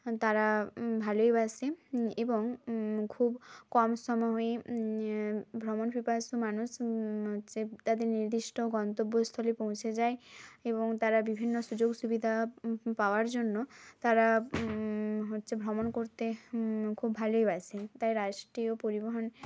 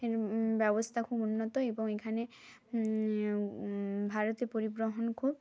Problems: none marked